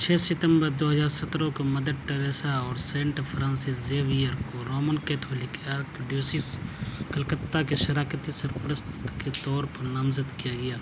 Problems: constant background noise, background conversations at intervals